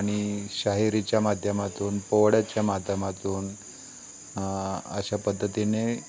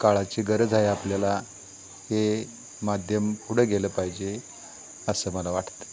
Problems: constant background noise